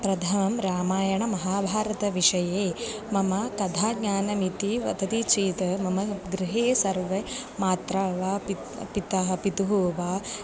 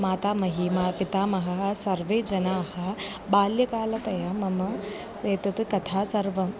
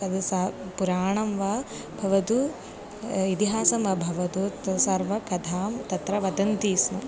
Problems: background sounds at intervals